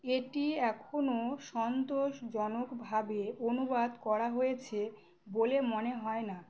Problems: none marked